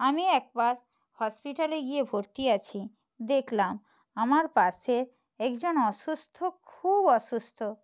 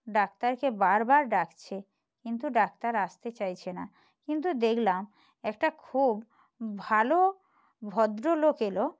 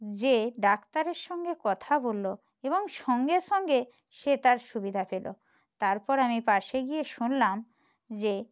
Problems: none marked